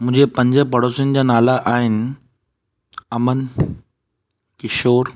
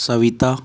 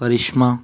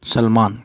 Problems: none marked